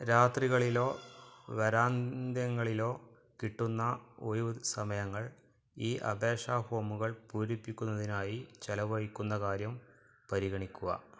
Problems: background conversations at intervals, low volume